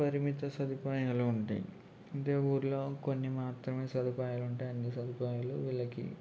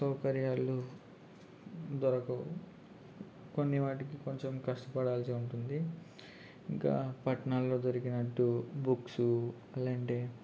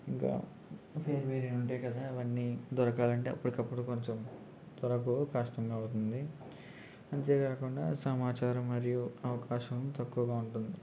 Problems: constant background noise, low volume